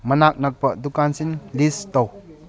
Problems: background conversations at intervals